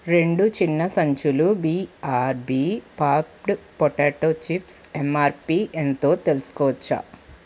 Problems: constant background noise